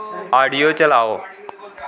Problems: background sounds at intervals